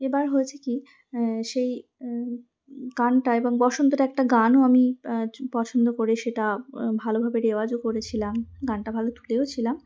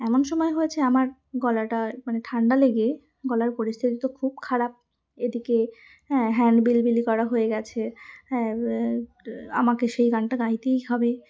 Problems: none marked